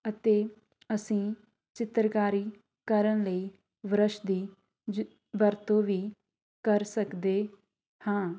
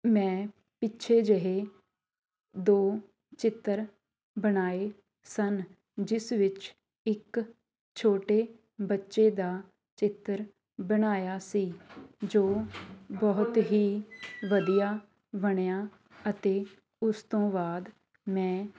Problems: background sounds at intervals, background conversations at intervals